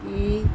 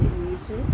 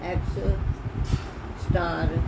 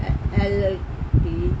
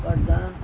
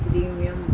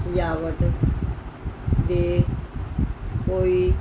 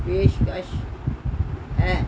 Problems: background sounds at intervals, background conversations at intervals